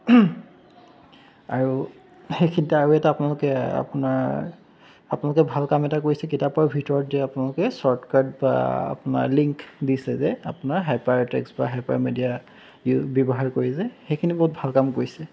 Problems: background sounds at intervals